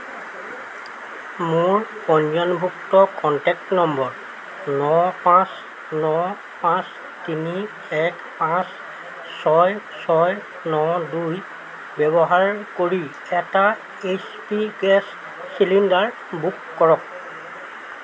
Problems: constant background noise